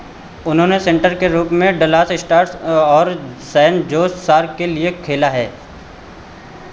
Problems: constant background noise, echo